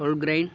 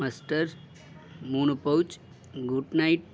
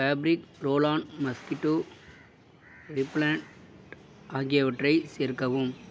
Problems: background sounds at intervals